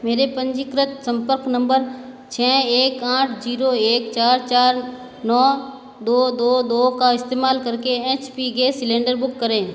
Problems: constant background noise